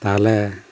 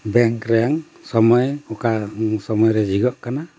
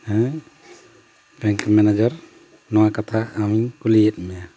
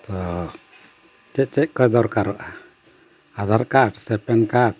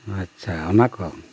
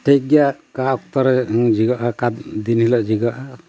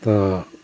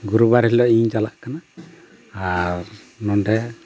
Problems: constant background noise